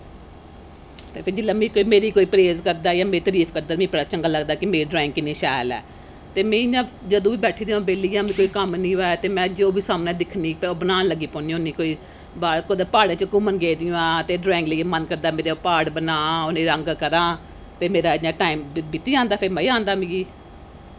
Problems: constant background noise